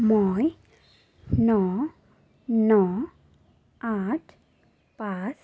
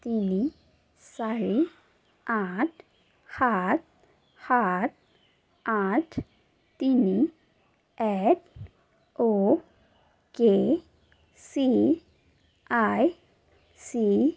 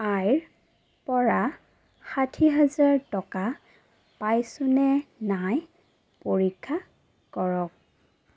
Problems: none marked